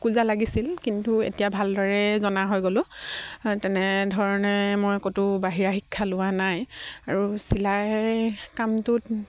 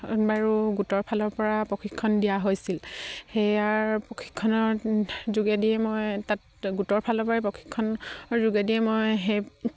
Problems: none marked